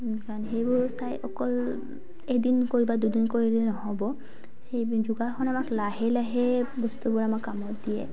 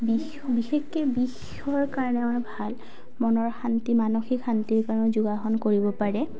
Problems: none marked